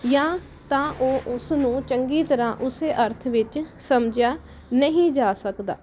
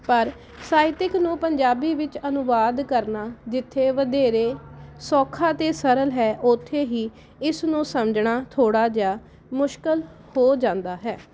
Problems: none marked